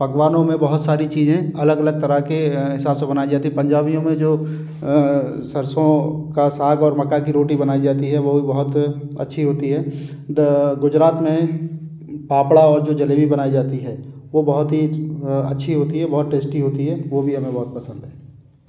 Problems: none marked